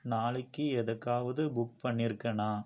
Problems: low volume